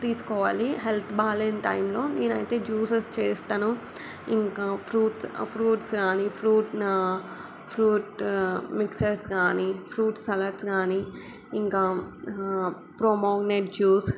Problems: none marked